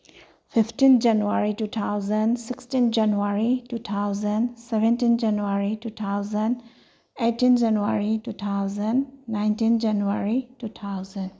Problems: none marked